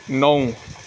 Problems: constant background noise